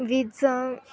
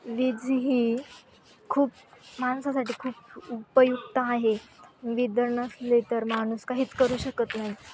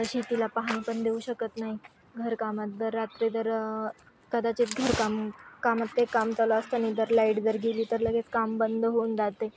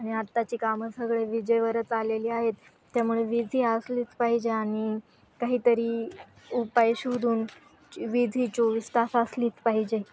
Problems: background sounds at intervals, continuous background conversations